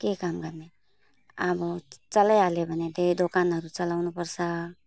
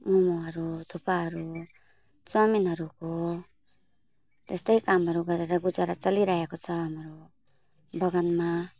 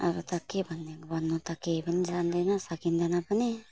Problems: background sounds at intervals